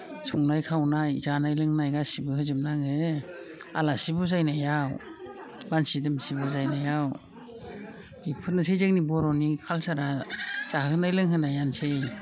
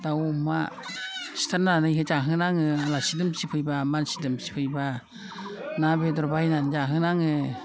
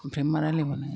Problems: constant background noise